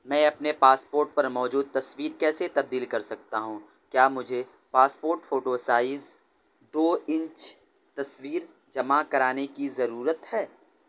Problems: none marked